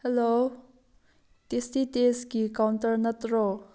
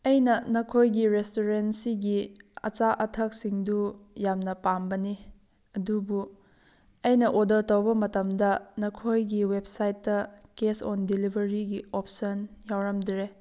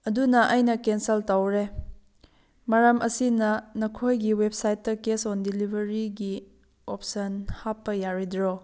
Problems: background sounds at intervals